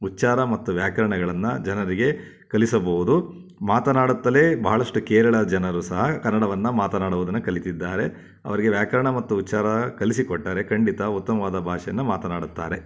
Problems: none marked